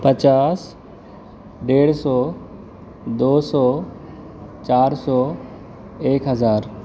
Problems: constant background noise